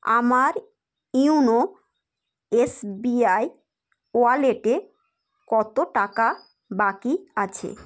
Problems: background sounds at intervals